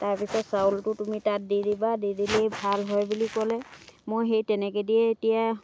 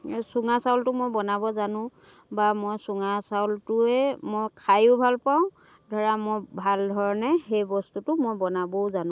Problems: none marked